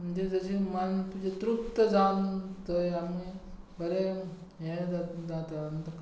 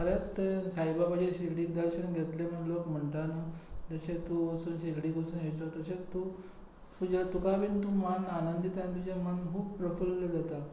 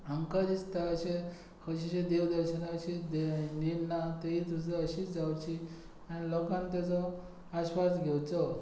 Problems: low volume